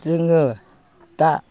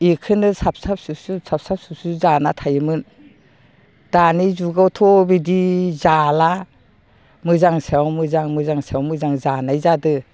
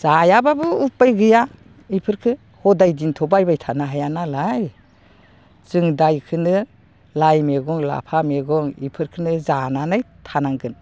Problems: none marked